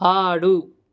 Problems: none marked